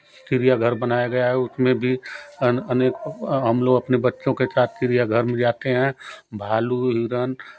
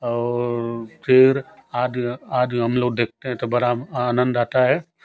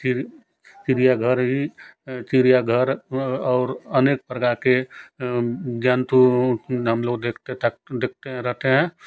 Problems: constant background noise